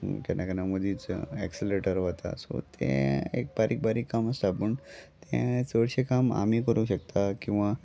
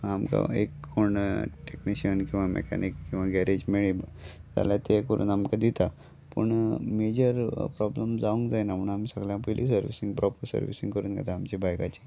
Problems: background sounds at intervals